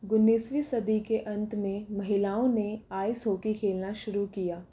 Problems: none marked